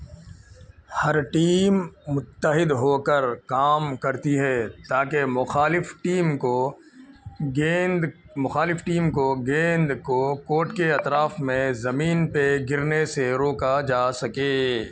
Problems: constant background noise